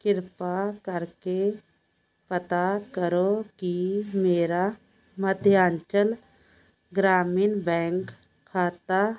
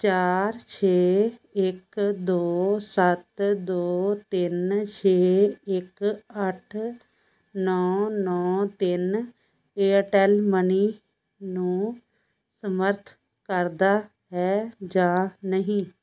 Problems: constant background noise